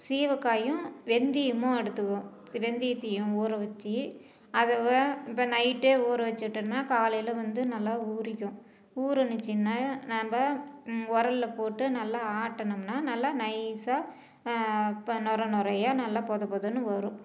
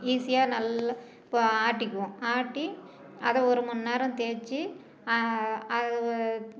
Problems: background conversations at intervals, low volume